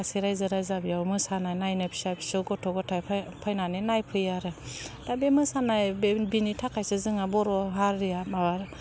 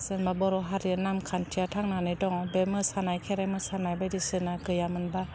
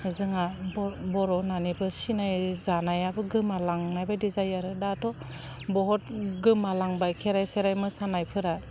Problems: constant background noise